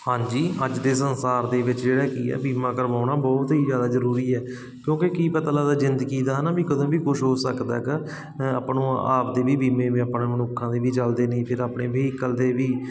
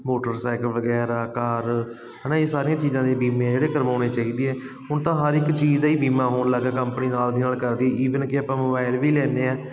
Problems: constant background noise